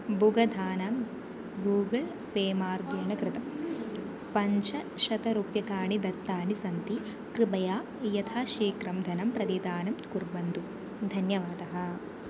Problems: constant background noise, continuous background conversations